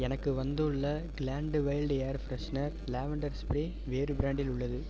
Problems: constant background noise